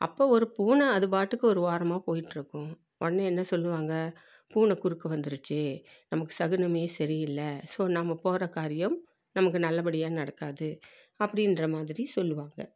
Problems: low volume